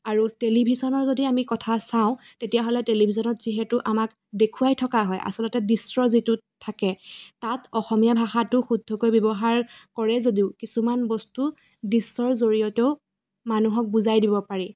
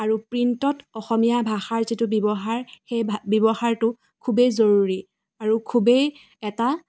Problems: background sounds at intervals